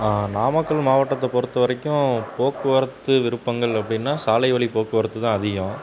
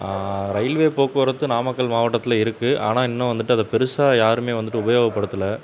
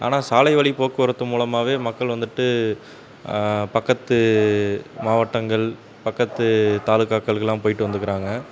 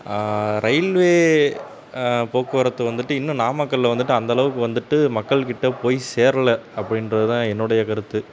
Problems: constant background noise